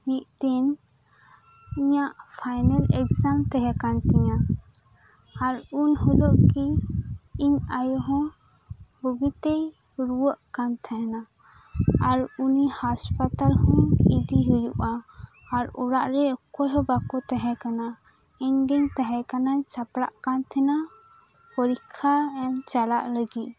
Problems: constant background noise, background conversations at intervals